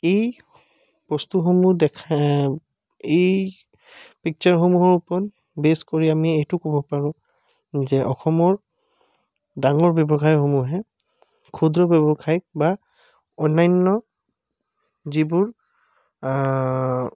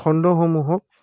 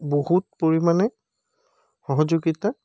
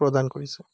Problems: background sounds at intervals